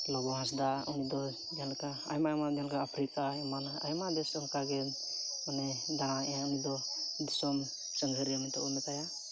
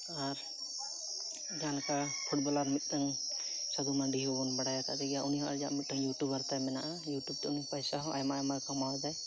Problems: none marked